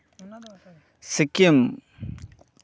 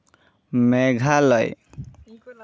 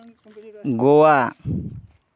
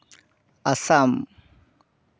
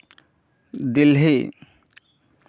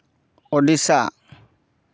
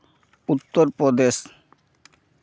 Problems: background conversations at intervals